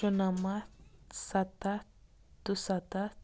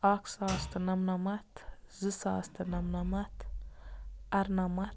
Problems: constant background noise